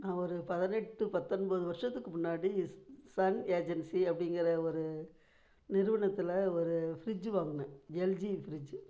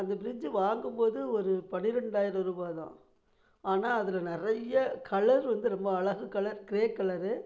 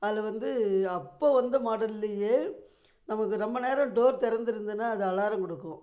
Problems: none marked